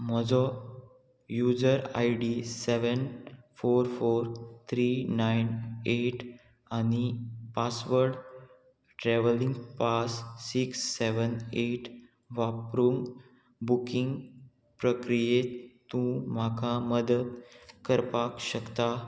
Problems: constant background noise